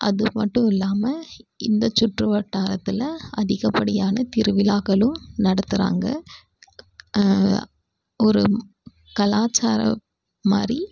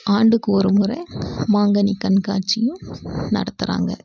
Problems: background sounds at intervals